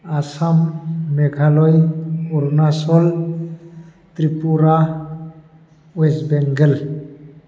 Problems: constant background noise